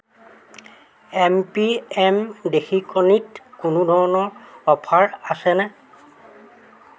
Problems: constant background noise, continuous background conversations